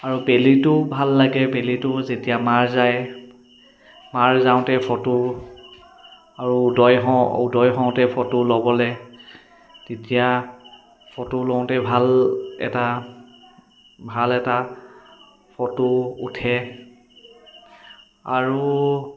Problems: constant background noise